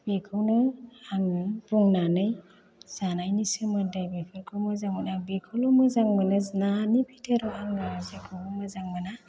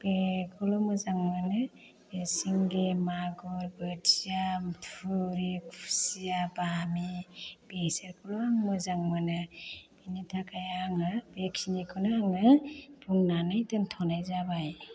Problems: low volume